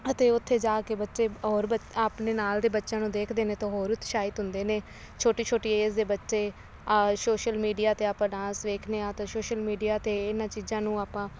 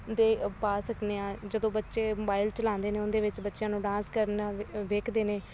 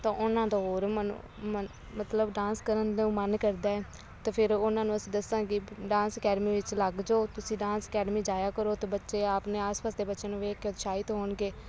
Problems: constant background noise